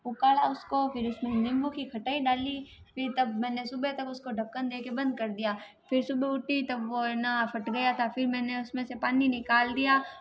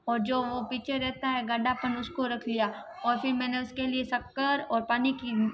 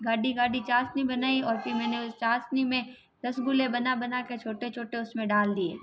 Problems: constant background noise